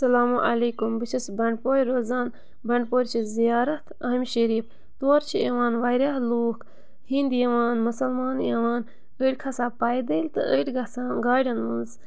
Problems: background sounds at intervals